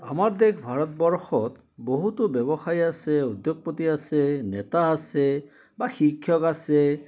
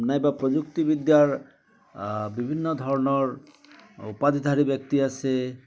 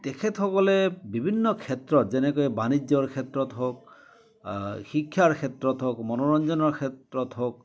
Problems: continuous background conversations